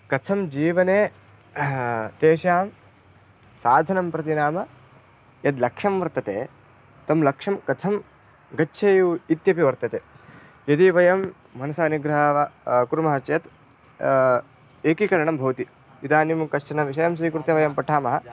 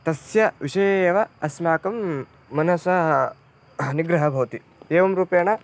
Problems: none marked